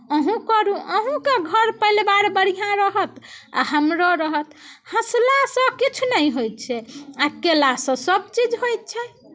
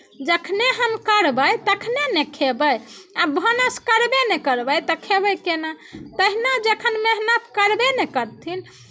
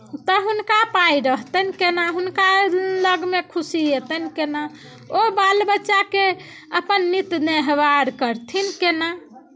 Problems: none marked